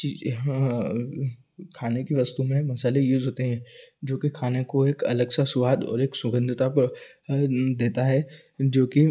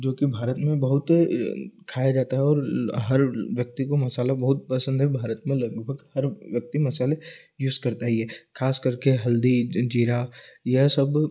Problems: constant background noise